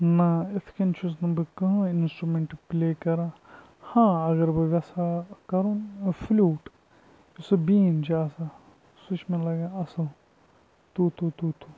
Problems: background sounds at intervals, low volume